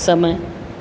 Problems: constant background noise